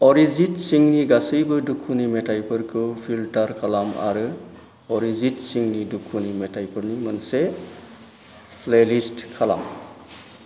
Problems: low volume